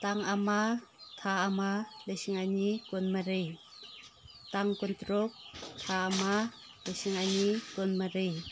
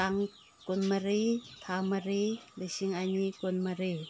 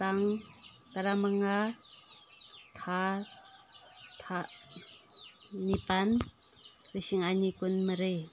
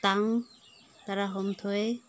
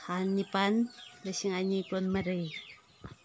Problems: background sounds at intervals